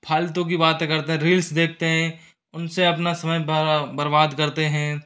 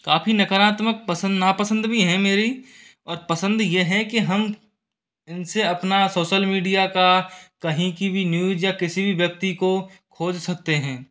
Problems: none marked